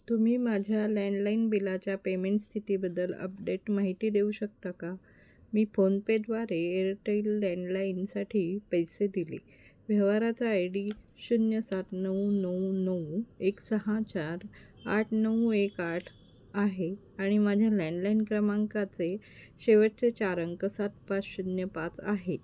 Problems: constant background noise, background conversations at intervals